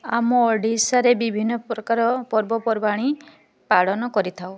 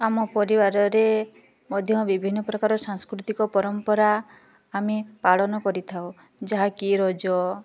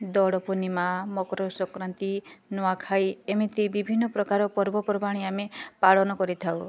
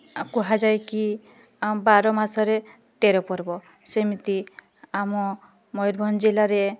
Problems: none marked